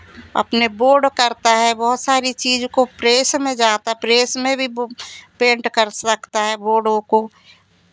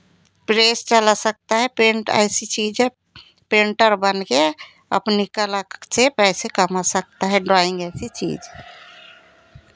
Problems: constant background noise, continuous background conversations